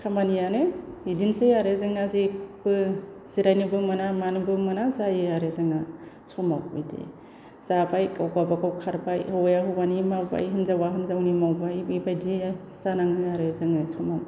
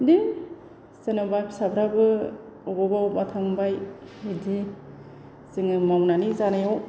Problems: constant background noise